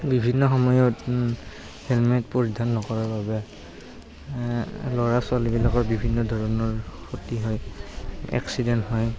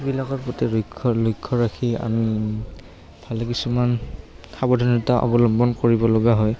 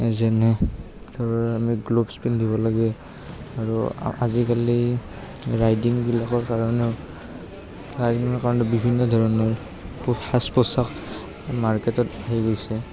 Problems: background sounds at intervals, background conversations at intervals